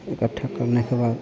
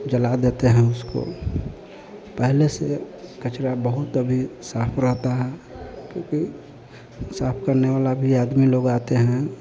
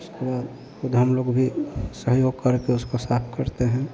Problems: constant background noise